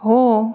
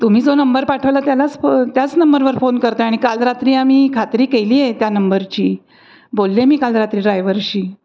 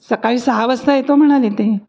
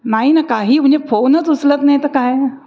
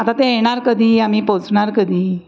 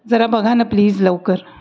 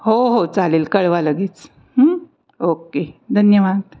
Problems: background sounds at intervals